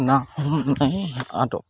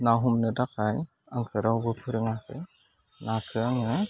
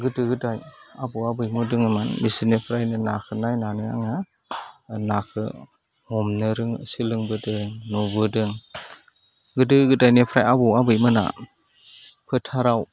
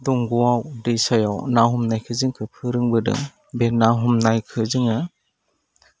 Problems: none marked